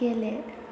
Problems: constant background noise